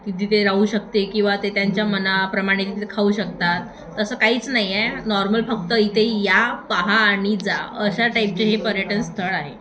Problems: constant background noise, continuous background conversations